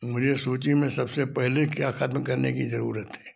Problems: low volume